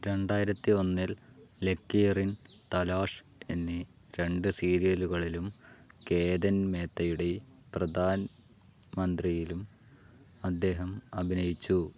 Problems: none marked